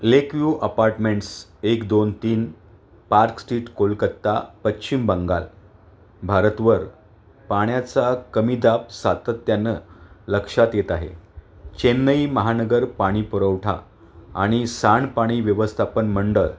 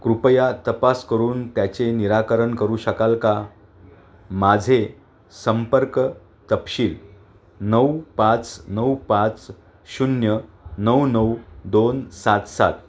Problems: constant background noise, background conversations at intervals